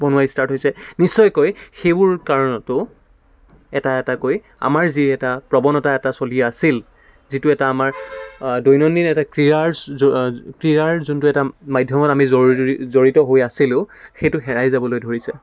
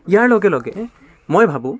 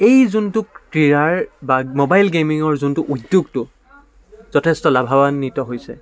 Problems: none marked